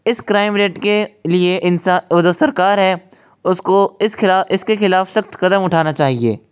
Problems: constant background noise, echo